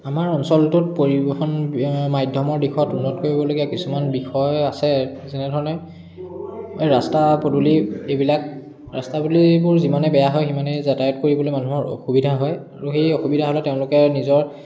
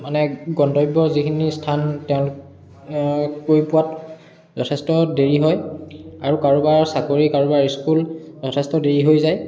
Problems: background sounds at intervals, continuous background conversations